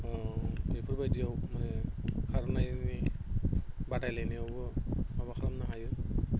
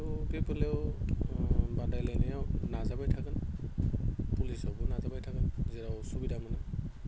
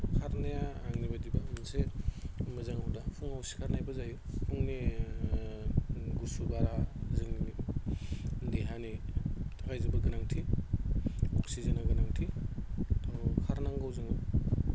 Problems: none marked